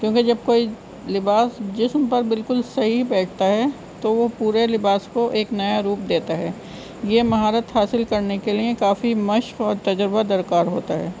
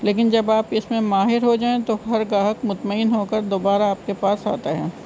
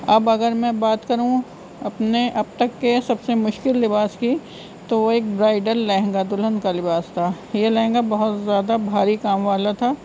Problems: constant background noise